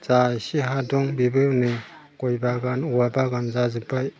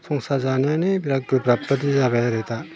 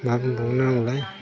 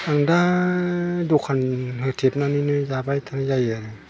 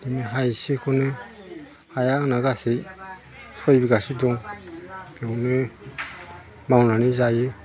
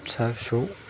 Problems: constant background noise